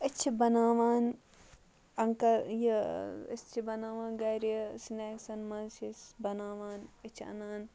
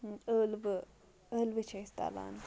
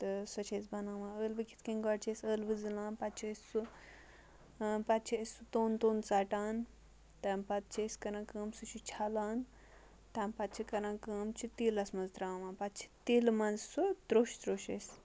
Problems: background sounds at intervals, low volume